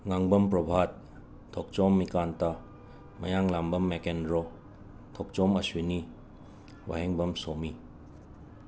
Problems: none marked